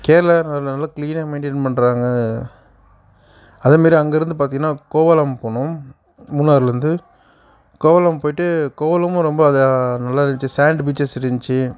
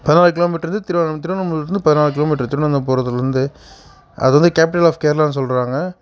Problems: background sounds at intervals